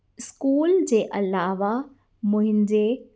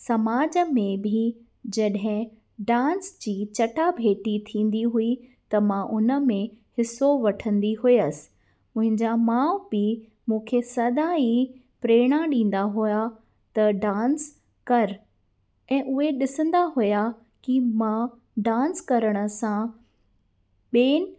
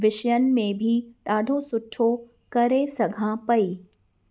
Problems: none marked